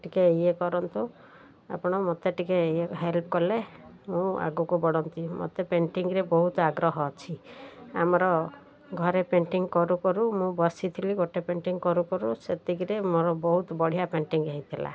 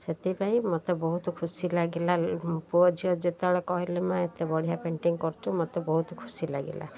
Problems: none marked